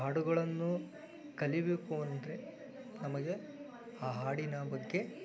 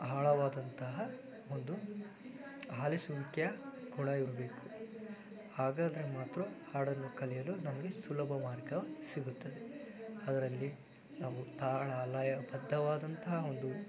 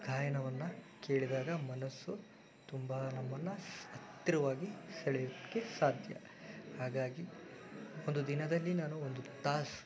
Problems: constant background noise